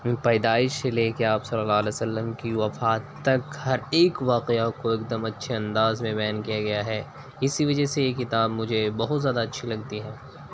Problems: constant background noise